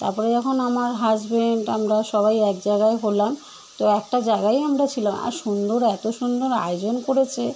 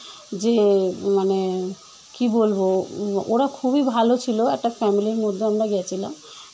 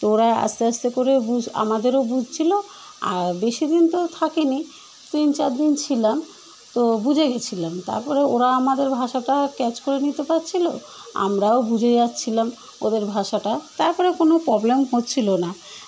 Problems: constant background noise